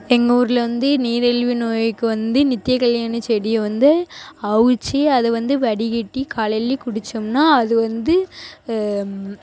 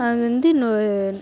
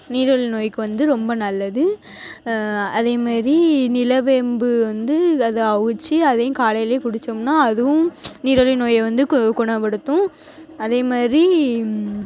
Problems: constant background noise, background conversations at intervals